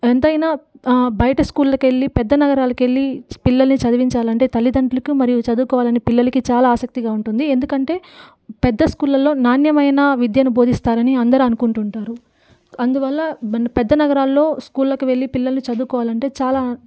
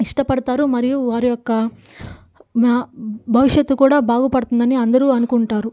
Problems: background sounds at intervals